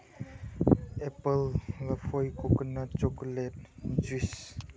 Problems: low volume